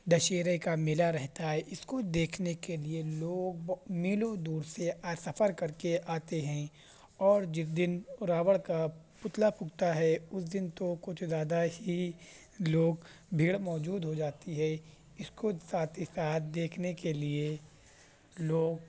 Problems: background sounds at intervals, background conversations at intervals